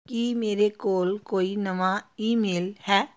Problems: none marked